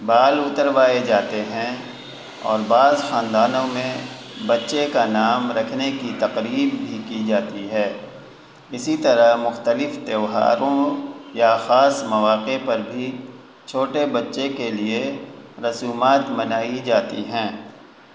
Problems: constant background noise